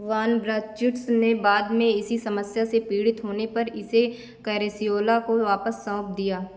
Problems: constant background noise